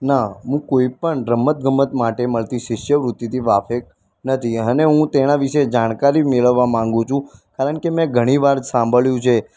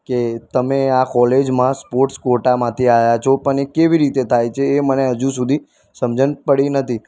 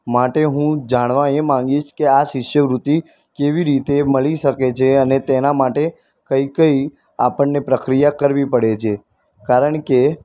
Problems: constant background noise